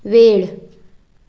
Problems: background sounds at intervals